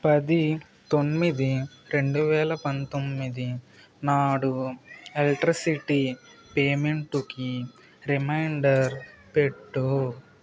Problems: background conversations at intervals